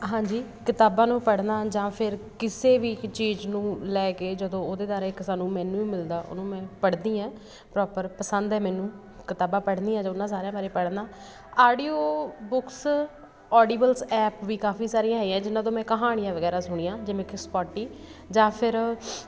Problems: none marked